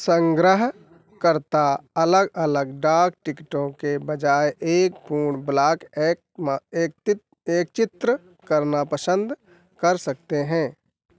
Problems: none marked